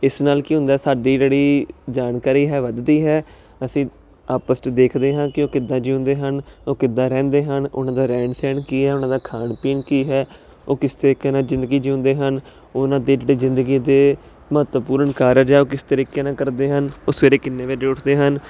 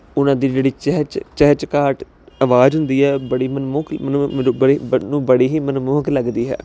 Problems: constant background noise